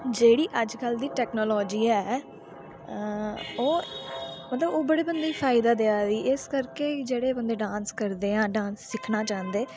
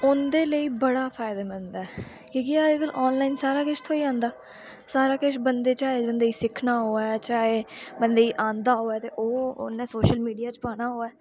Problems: low volume